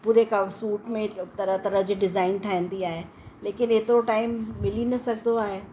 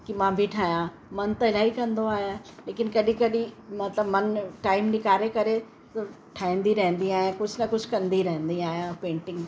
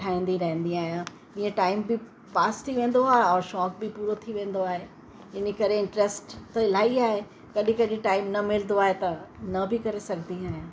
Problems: constant background noise